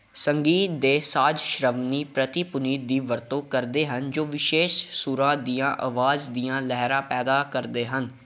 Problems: background sounds at intervals